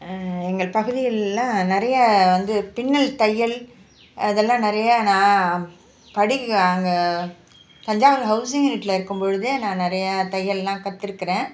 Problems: none marked